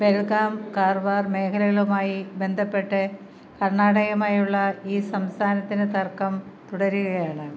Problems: none marked